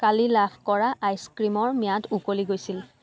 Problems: background sounds at intervals, background conversations at intervals